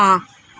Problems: background sounds at intervals